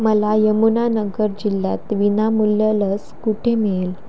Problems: constant background noise